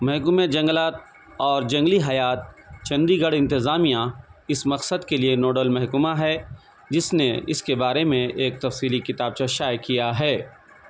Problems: none marked